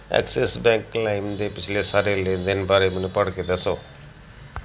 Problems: constant background noise